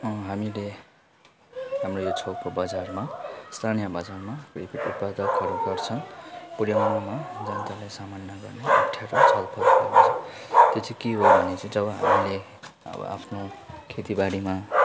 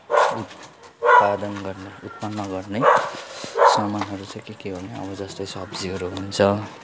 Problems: continuous background conversations, low volume